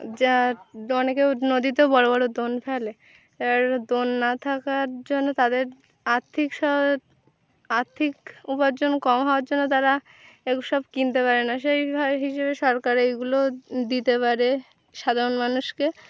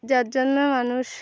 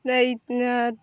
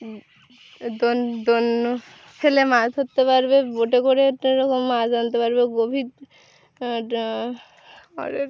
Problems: background sounds at intervals